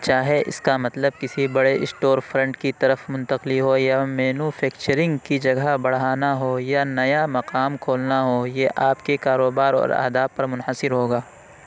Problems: none marked